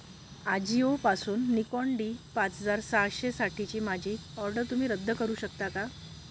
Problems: constant background noise